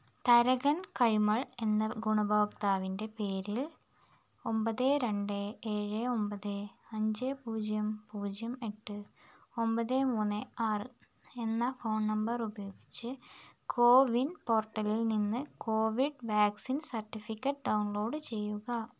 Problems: background sounds at intervals